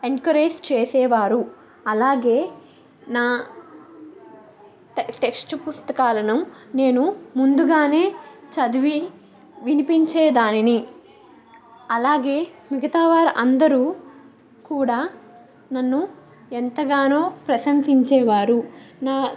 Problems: none marked